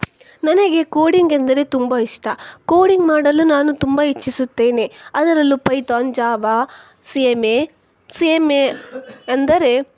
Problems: none marked